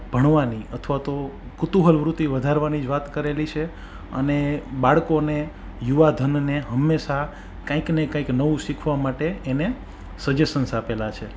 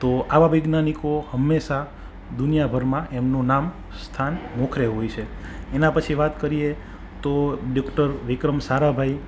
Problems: background sounds at intervals